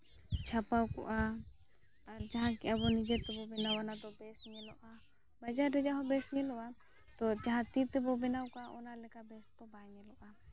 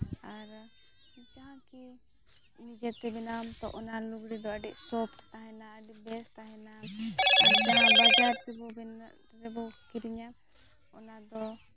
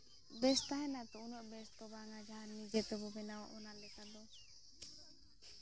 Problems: background sounds at intervals, low volume